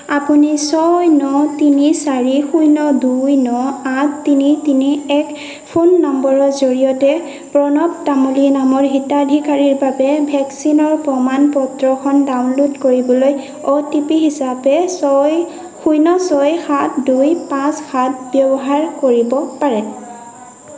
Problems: constant background noise